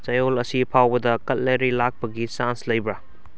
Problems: none marked